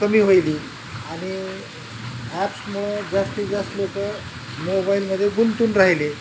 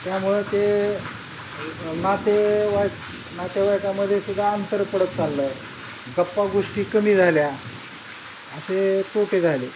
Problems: constant background noise